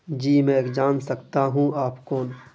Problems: constant background noise